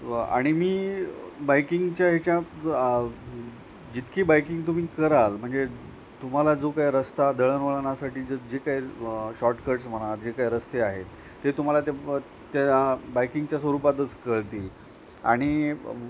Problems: none marked